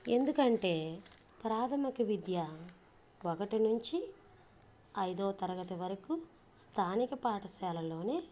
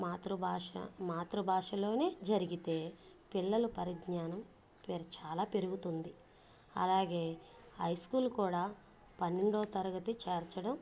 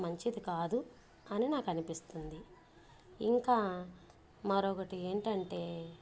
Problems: low volume